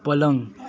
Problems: continuous background conversations